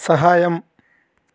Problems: constant background noise